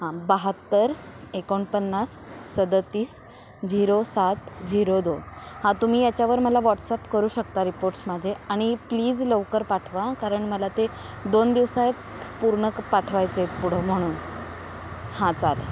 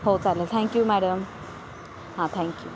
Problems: none marked